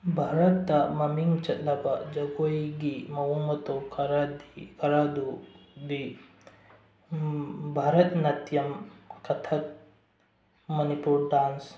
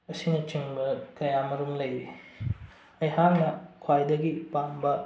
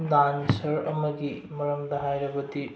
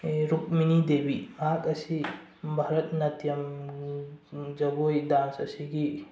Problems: low volume